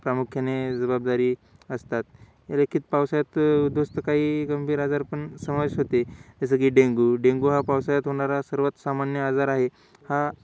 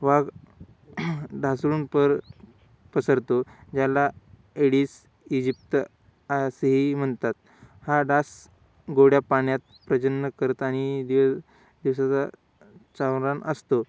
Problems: constant background noise